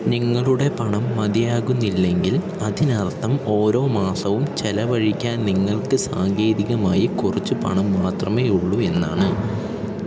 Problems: constant background noise